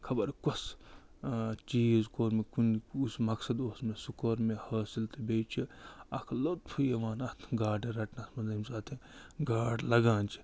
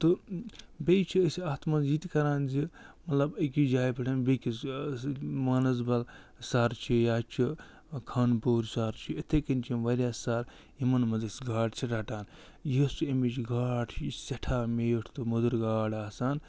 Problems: none marked